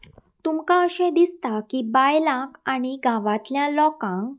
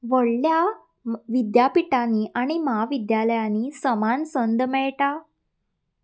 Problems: background sounds at intervals